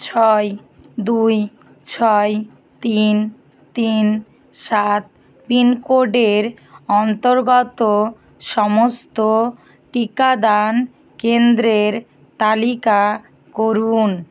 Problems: constant background noise